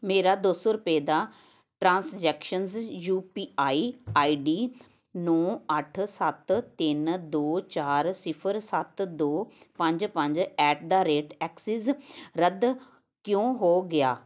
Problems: none marked